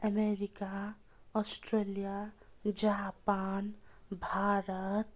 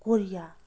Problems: continuous background conversations